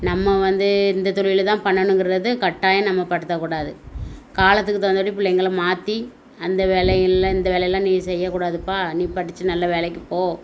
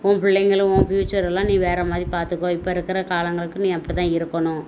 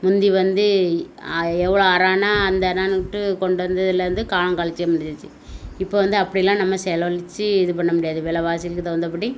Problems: none marked